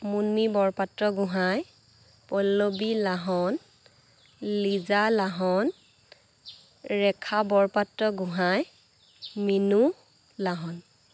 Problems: none marked